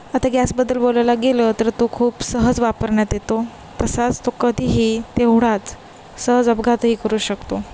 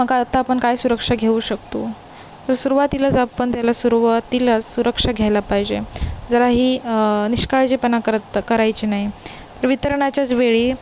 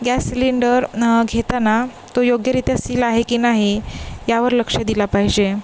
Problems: constant background noise, background conversations at intervals